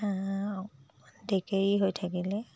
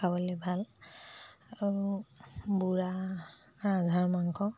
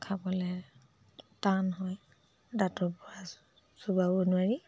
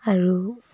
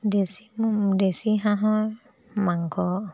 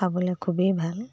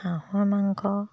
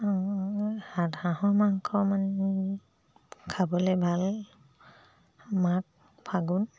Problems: low volume